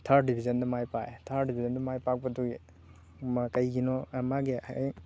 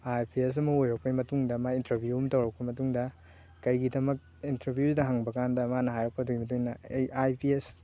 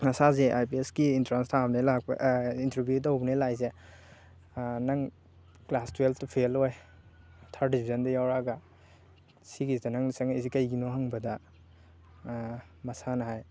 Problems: constant background noise